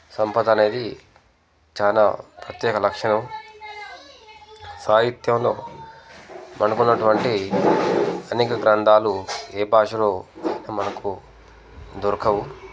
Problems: background conversations at intervals